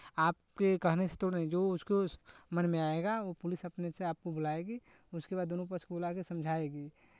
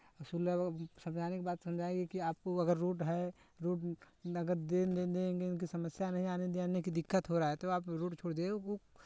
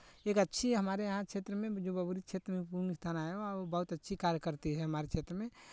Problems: none marked